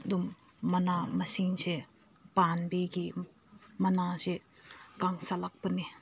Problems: none marked